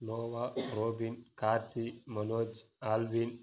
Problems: low volume